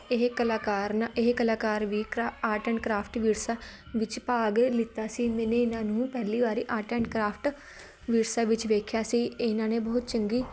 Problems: background sounds at intervals